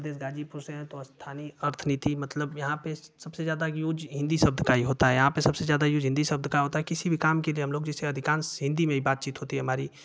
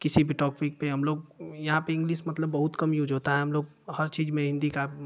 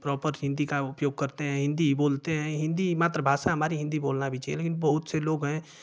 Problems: constant background noise